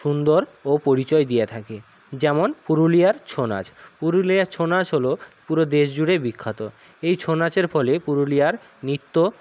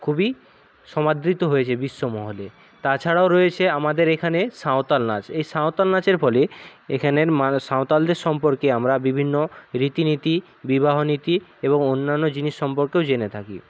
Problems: none marked